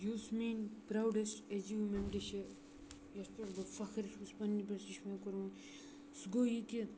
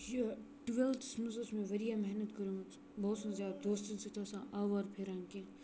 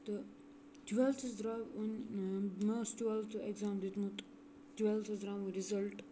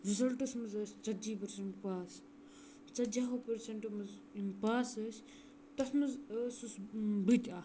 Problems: background sounds at intervals, low volume